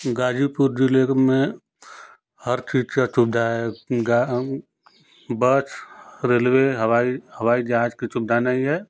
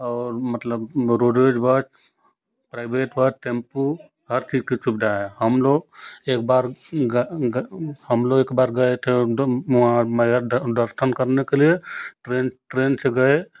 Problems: constant background noise